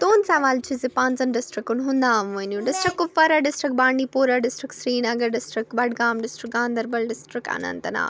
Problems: background sounds at intervals